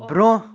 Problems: background sounds at intervals, background conversations at intervals